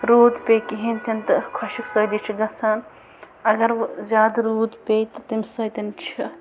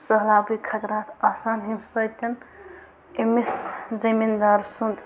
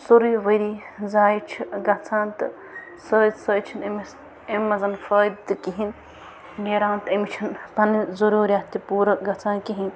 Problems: constant background noise